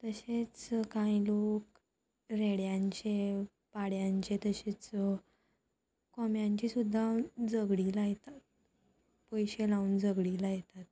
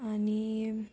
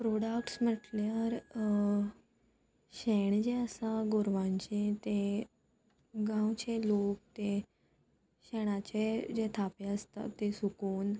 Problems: constant background noise